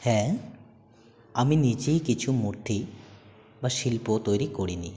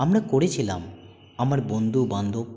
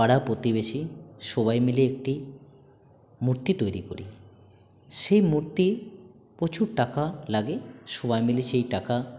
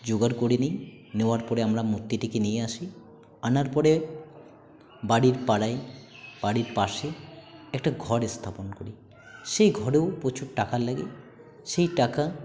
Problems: constant background noise, continuous background conversations